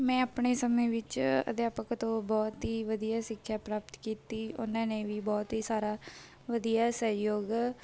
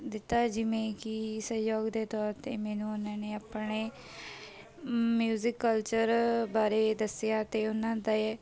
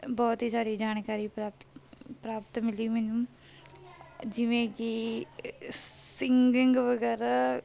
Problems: none marked